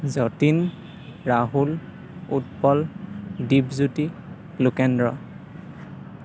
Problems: none marked